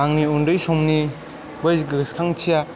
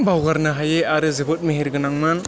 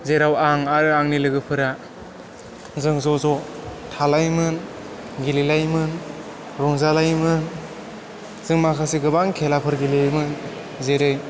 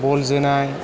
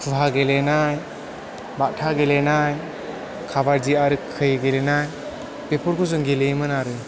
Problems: constant background noise